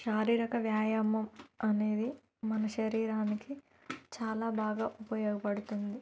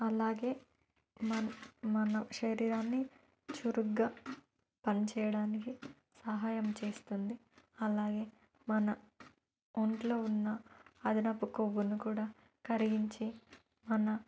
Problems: background sounds at intervals